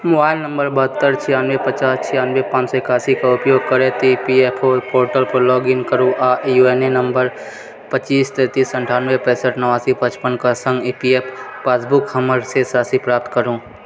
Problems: background sounds at intervals, background conversations at intervals